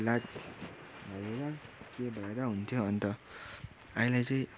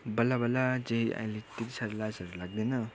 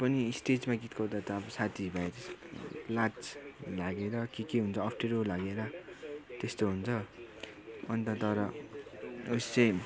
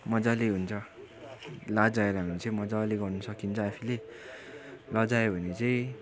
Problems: none marked